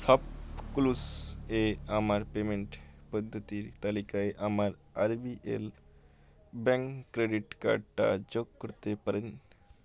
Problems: none marked